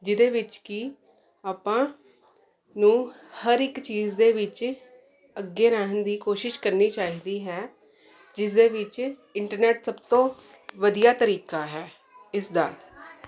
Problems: continuous background conversations